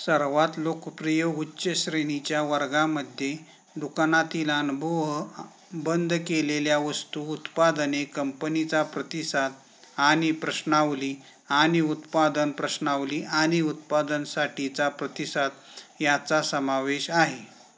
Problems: none marked